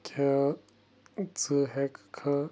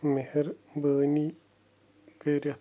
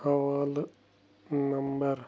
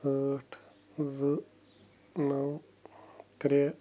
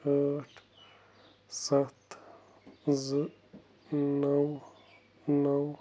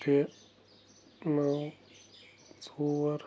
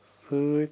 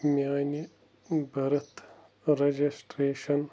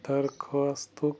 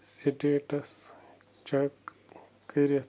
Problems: none marked